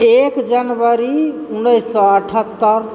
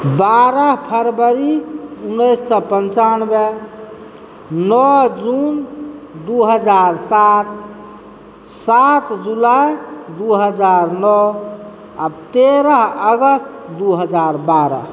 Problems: constant background noise